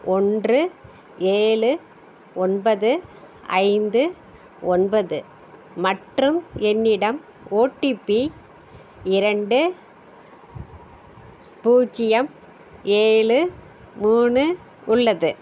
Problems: none marked